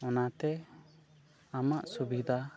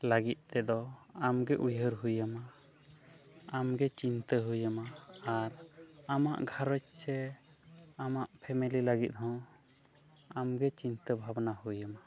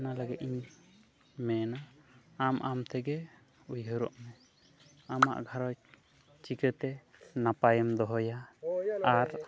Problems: none marked